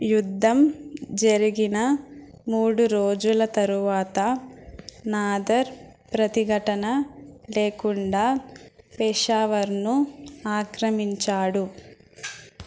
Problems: background sounds at intervals